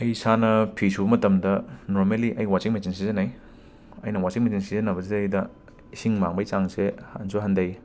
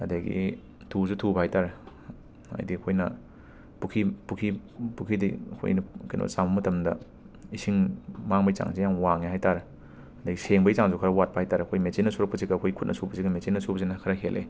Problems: constant background noise